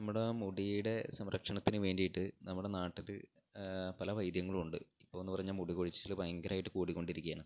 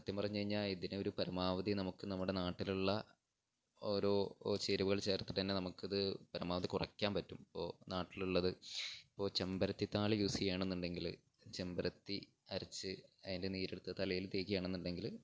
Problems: none marked